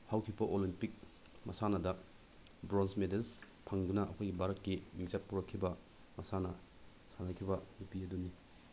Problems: low volume